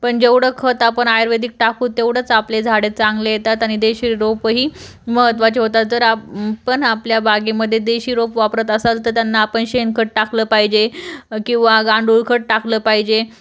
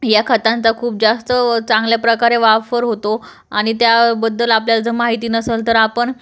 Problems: none marked